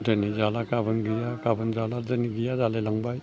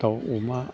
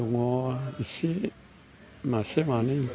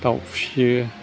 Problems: low volume